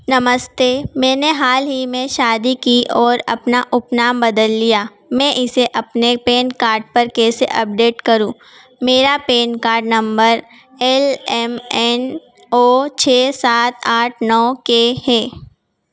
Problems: background sounds at intervals